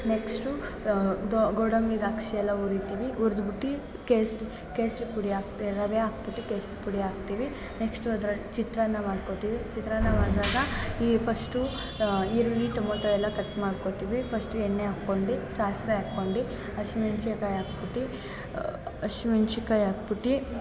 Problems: constant background noise, background conversations at intervals